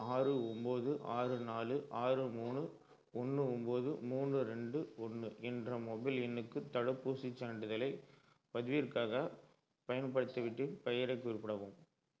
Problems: low volume